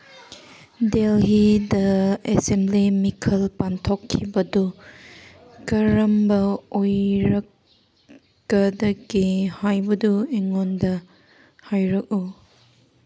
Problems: background sounds at intervals